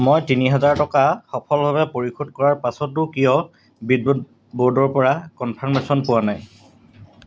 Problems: none marked